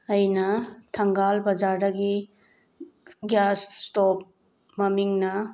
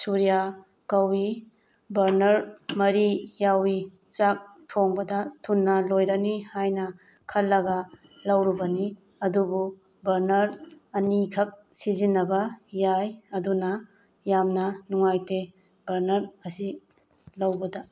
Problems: none marked